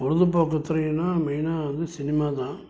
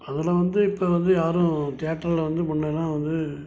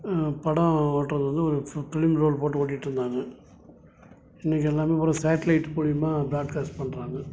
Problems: background sounds at intervals